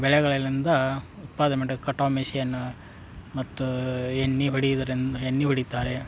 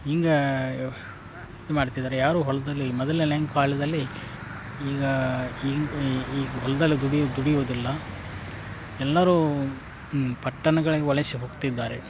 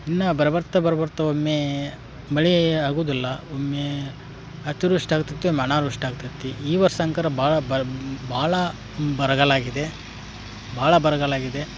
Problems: background sounds at intervals